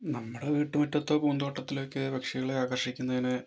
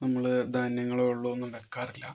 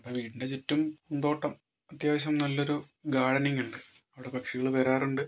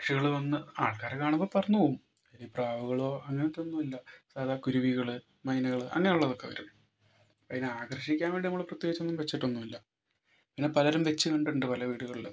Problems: none marked